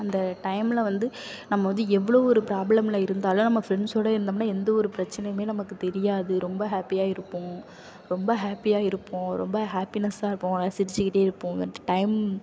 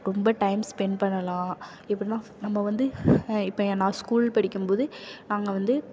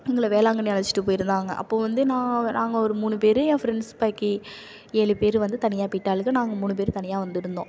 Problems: none marked